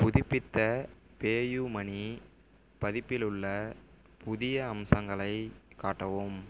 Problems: none marked